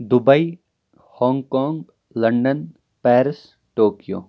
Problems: background sounds at intervals